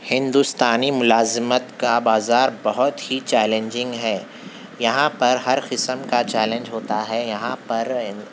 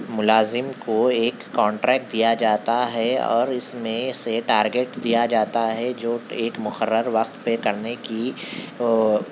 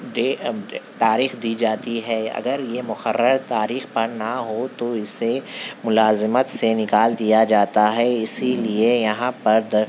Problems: constant background noise